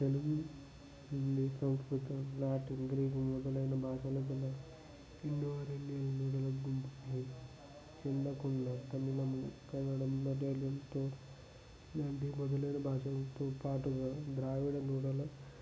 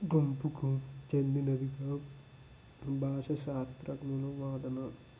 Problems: constant background noise, low volume